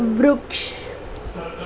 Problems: constant background noise, continuous background conversations